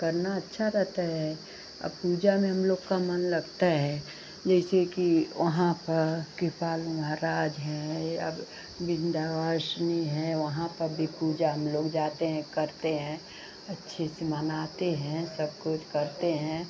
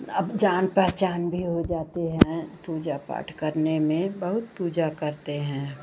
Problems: none marked